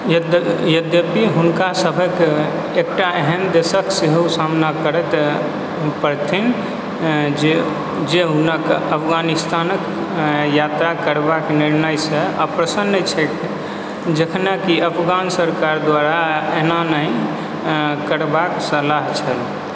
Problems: constant background noise